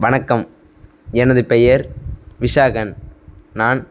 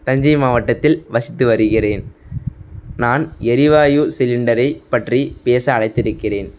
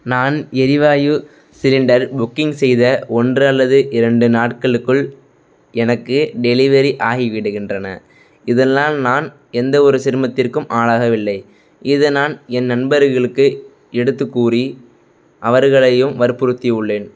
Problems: background sounds at intervals